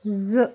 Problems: background sounds at intervals